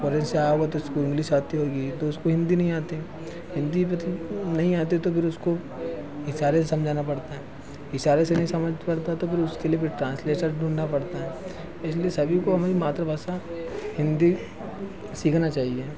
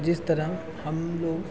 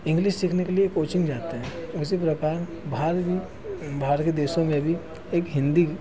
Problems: constant background noise